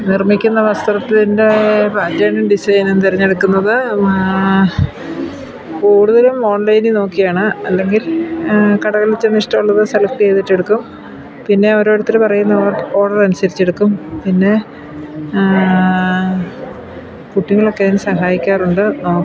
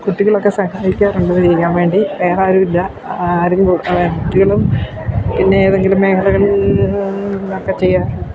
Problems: constant background noise